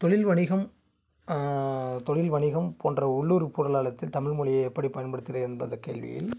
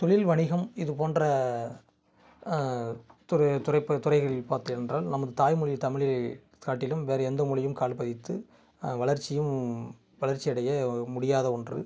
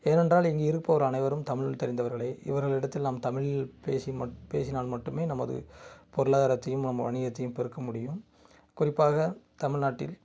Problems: background sounds at intervals